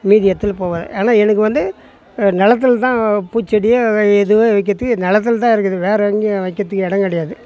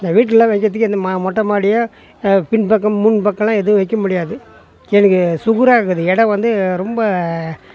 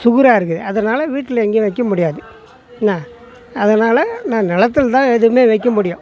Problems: background sounds at intervals, background conversations at intervals